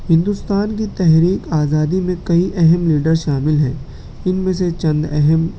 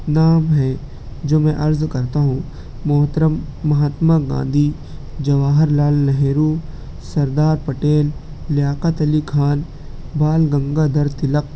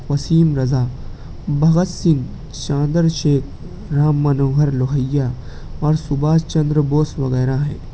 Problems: constant background noise